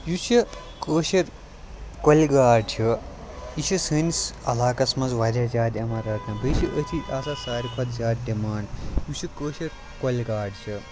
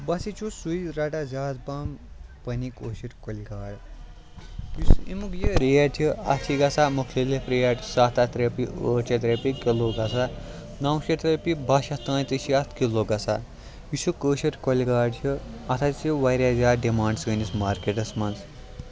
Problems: constant background noise